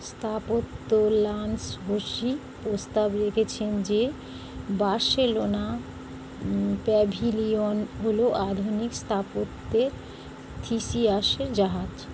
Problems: none marked